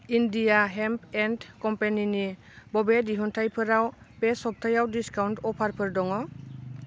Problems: none marked